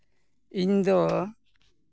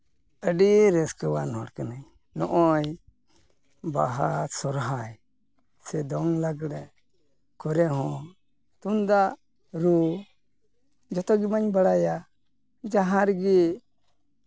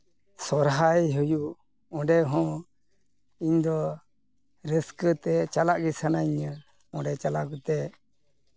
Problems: background sounds at intervals